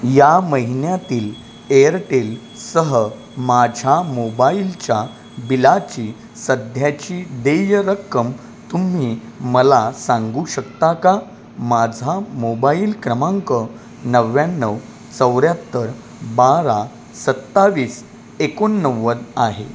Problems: constant background noise